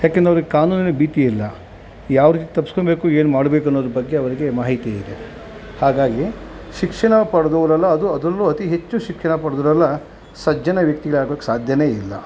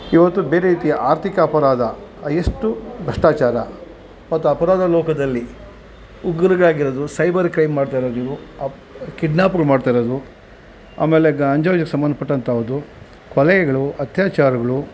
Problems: constant background noise